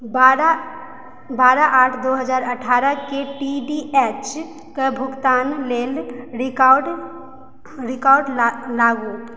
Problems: background sounds at intervals